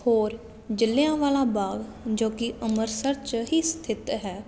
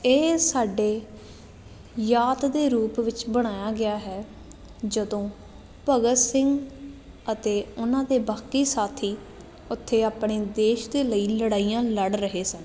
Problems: none marked